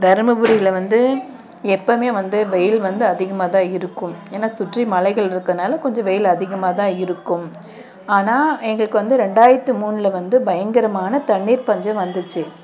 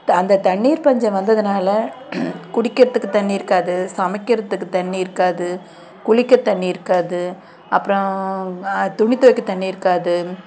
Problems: constant background noise